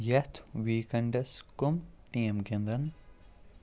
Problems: none marked